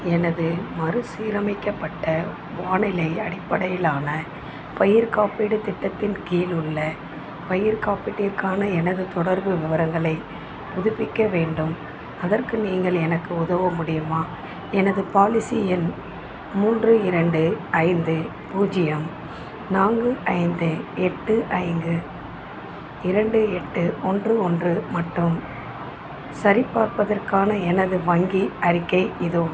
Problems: constant background noise